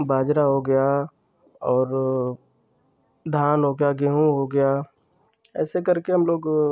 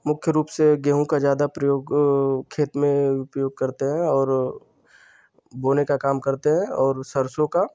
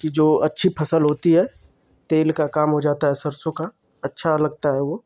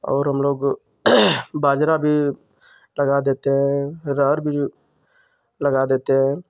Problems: constant background noise